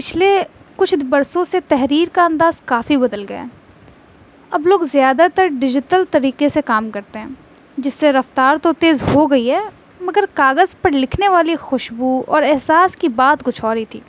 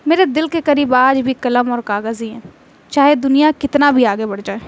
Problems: constant background noise